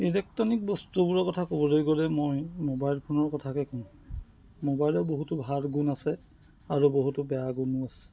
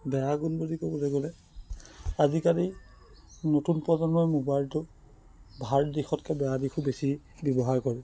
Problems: background sounds at intervals